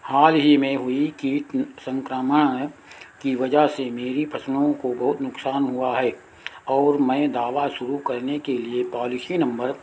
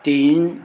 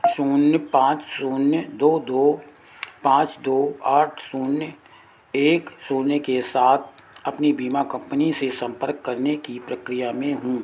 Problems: constant background noise